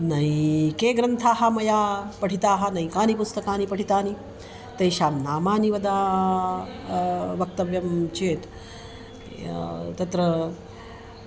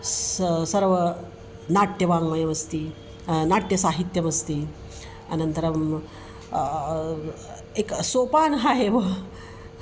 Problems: constant background noise